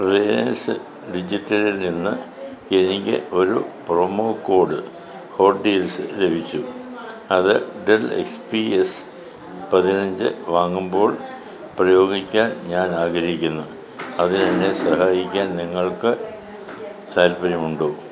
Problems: none marked